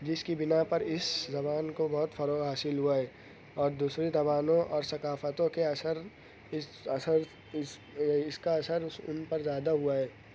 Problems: none marked